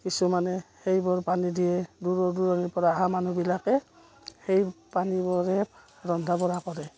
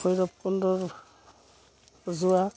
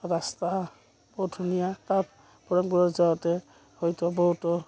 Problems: none marked